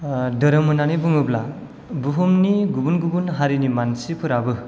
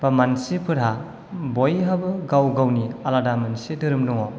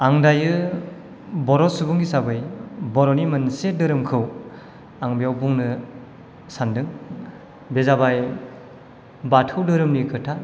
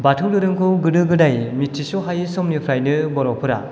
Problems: none marked